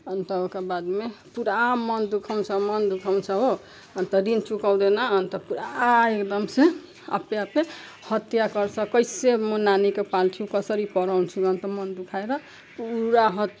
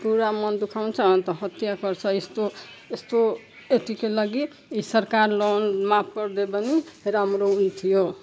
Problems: background sounds at intervals